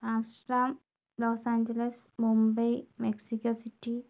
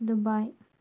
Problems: none marked